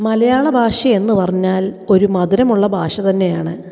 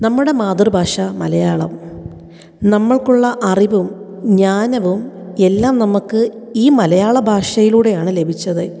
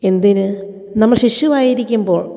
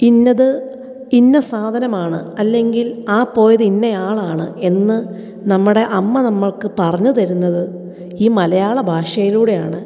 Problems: echo